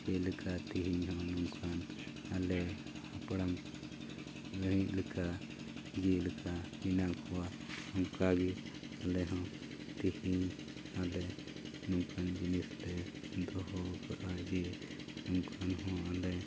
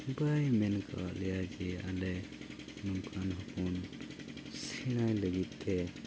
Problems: constant background noise